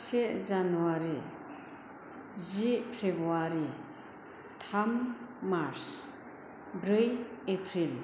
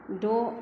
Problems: low volume